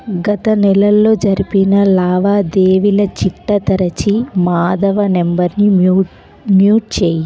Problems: constant background noise